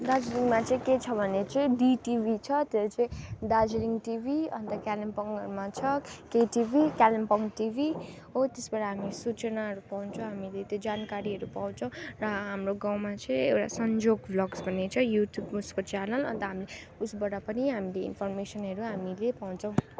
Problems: constant background noise